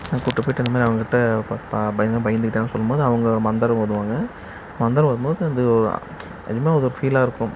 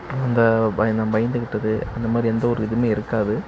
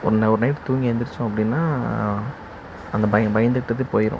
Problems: background sounds at intervals